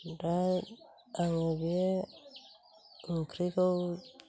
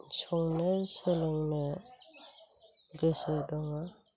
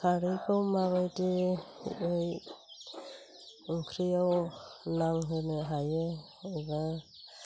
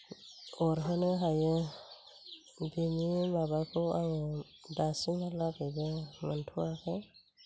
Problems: low volume